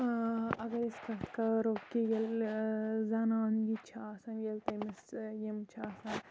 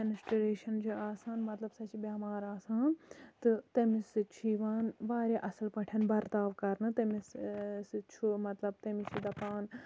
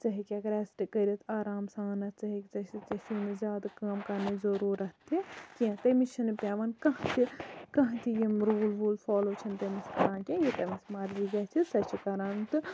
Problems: constant background noise, low volume